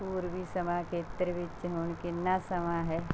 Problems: none marked